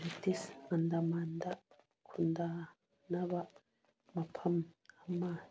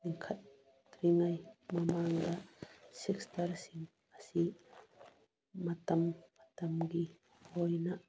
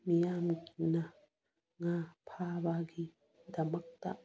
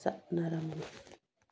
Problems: background sounds at intervals